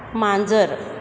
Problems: background sounds at intervals